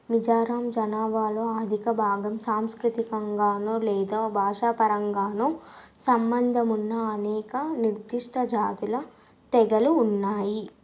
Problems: constant background noise